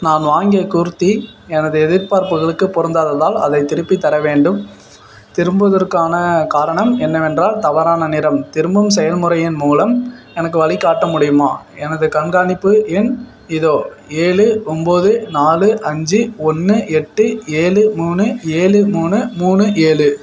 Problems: background sounds at intervals